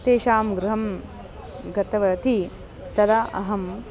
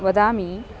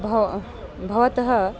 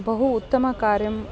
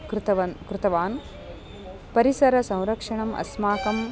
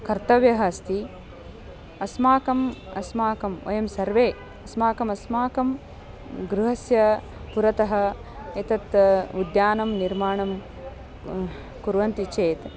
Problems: continuous background conversations